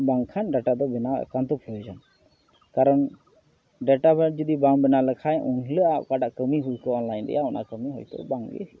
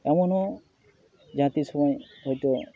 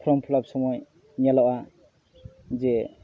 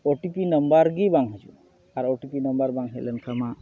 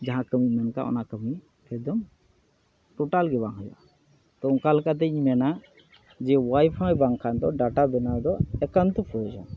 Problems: none marked